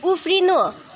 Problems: constant background noise